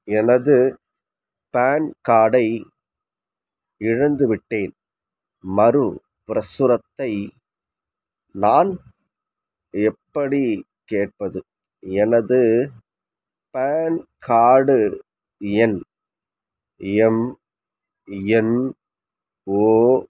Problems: none marked